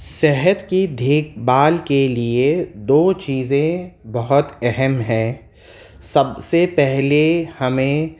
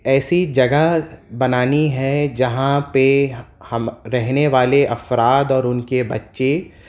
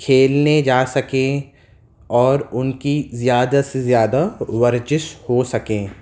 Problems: constant background noise